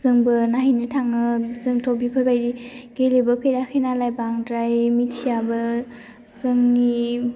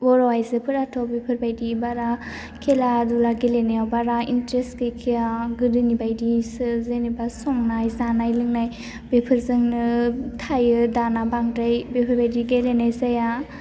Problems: low volume